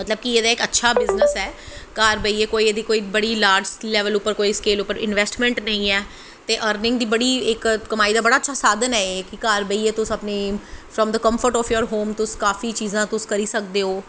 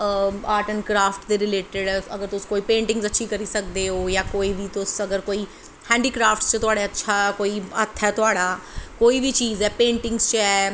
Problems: constant background noise